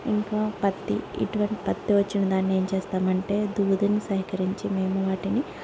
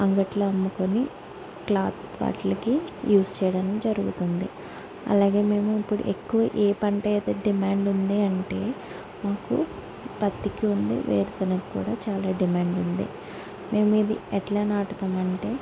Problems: low volume